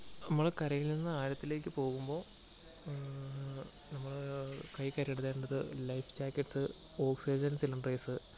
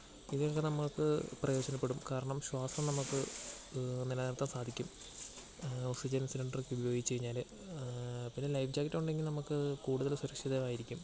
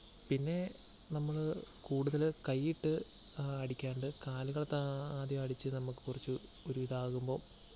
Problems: background sounds at intervals, low volume